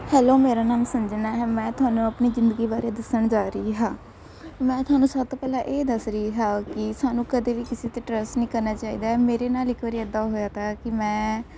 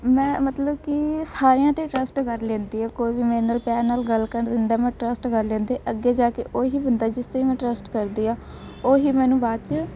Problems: none marked